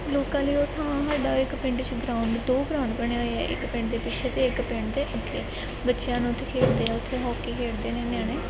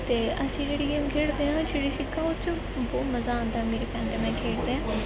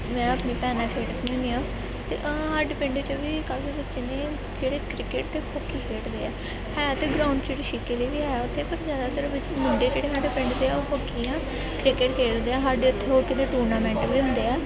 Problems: constant background noise